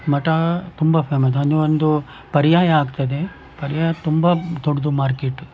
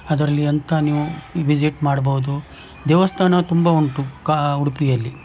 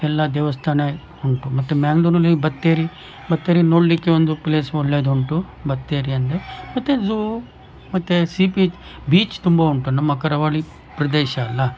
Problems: background sounds at intervals